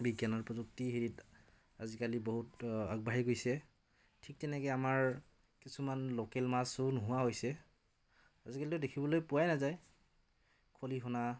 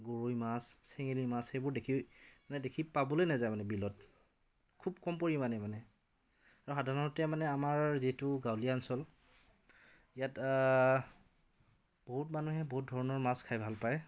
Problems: background conversations at intervals